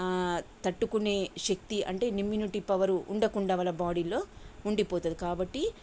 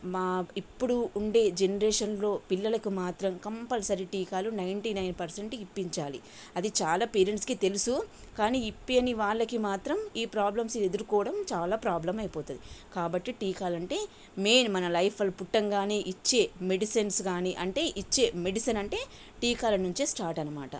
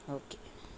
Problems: constant background noise